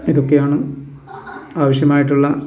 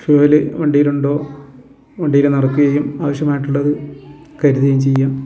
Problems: constant background noise